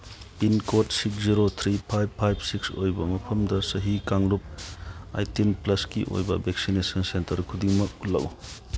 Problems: none marked